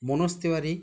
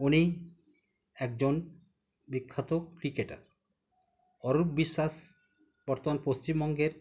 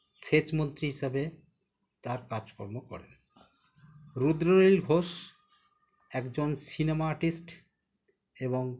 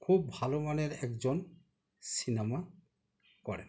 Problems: none marked